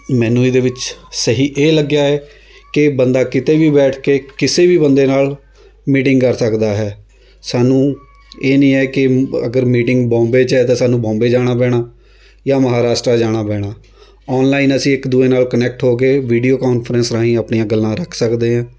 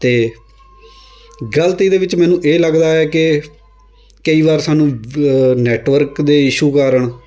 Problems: constant background noise